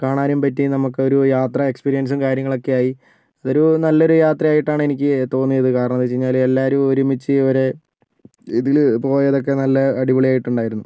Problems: none marked